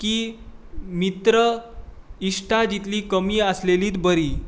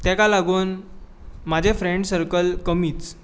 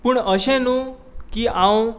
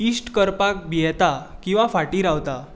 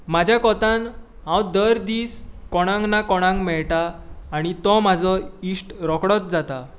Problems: constant background noise